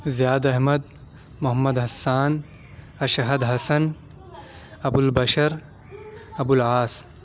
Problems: none marked